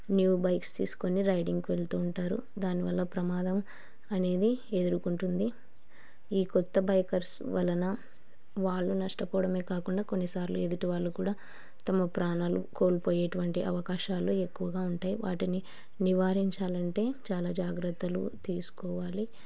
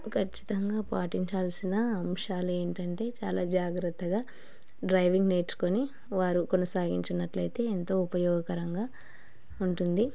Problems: none marked